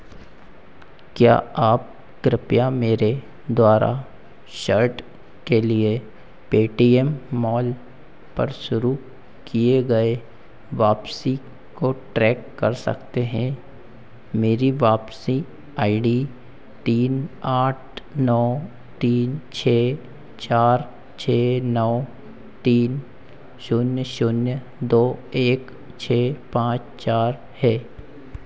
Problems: constant background noise, echo